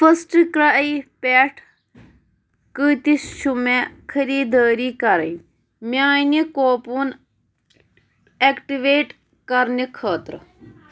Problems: none marked